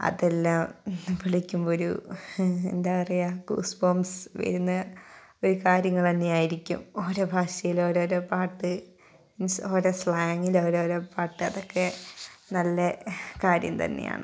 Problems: background sounds at intervals